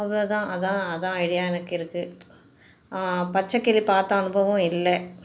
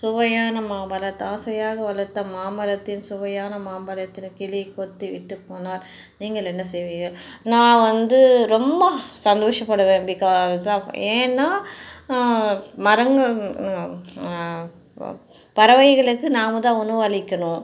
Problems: none marked